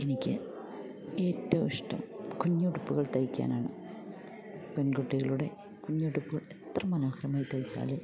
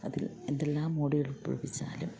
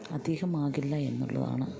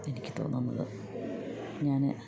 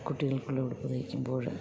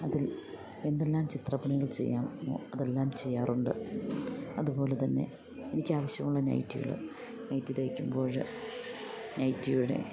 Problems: constant background noise